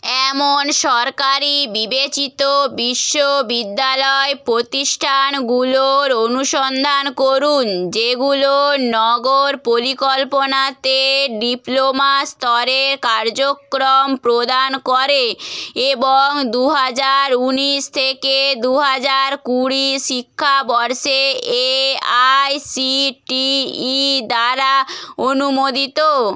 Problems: none marked